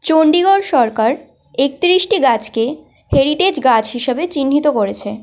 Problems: none marked